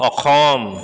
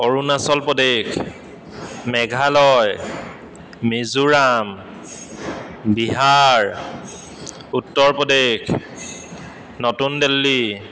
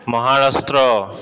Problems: constant background noise, echo